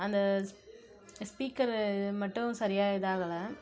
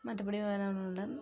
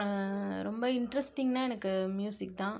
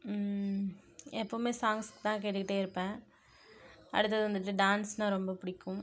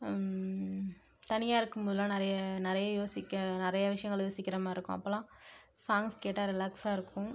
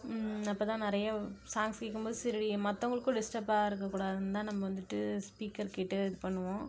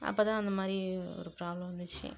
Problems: none marked